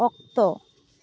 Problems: background sounds at intervals